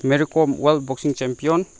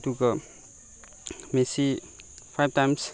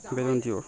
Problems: background conversations at intervals